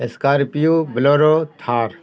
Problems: none marked